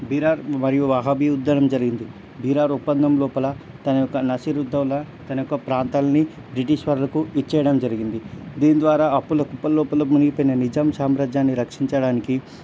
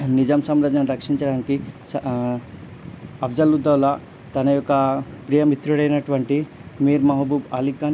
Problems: none marked